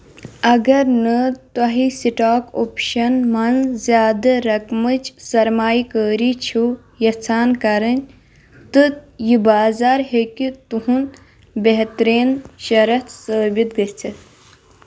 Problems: background sounds at intervals